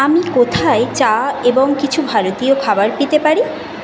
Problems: constant background noise